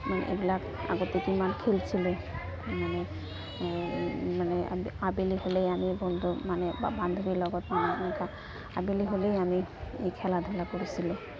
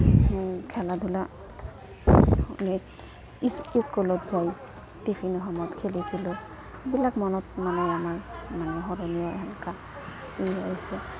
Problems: constant background noise, continuous background conversations